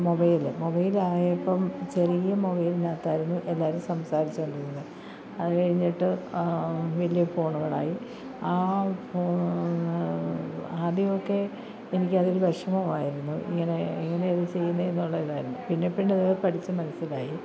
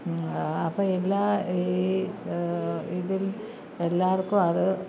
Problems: low volume